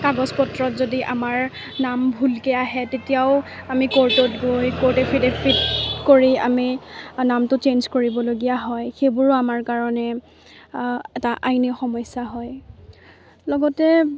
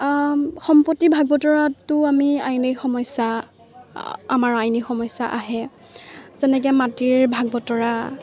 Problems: constant background noise, background conversations at intervals